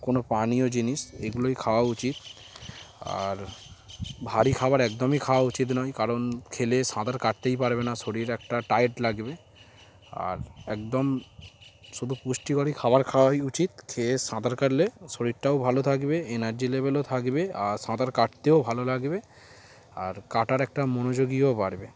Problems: background sounds at intervals